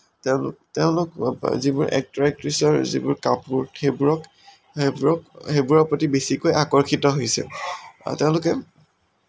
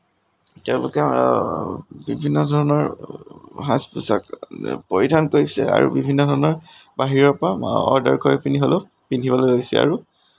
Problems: none marked